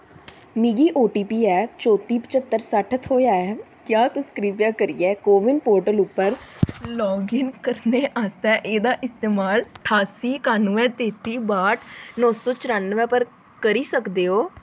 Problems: constant background noise